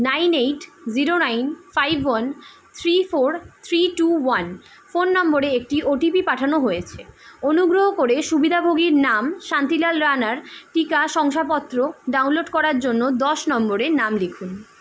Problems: constant background noise